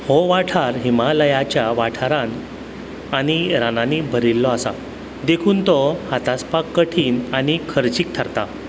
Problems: constant background noise